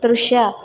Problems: constant background noise